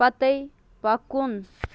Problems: constant background noise